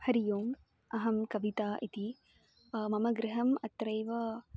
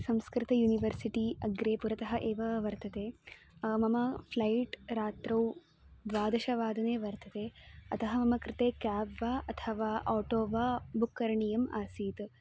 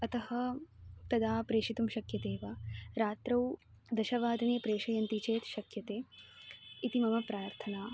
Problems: constant background noise